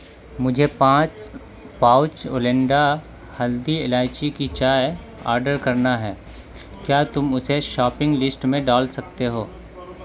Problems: constant background noise, continuous background conversations